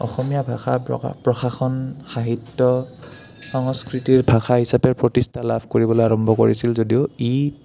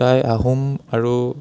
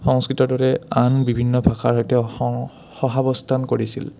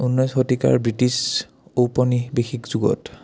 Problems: low volume